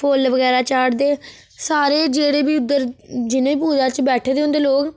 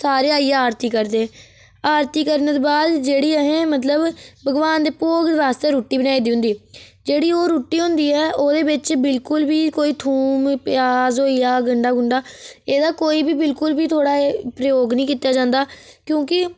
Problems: none marked